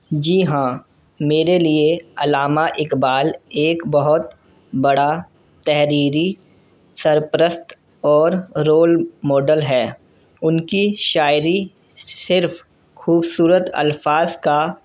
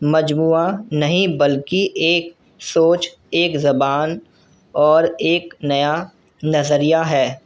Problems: constant background noise